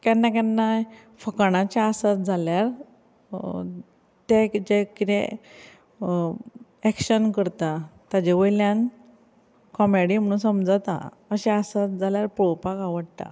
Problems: background conversations at intervals